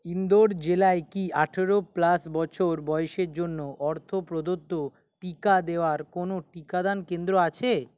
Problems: none marked